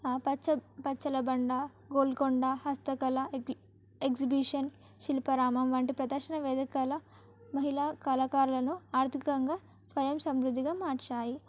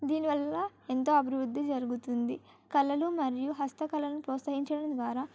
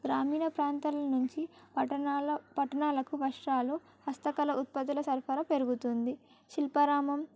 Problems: background sounds at intervals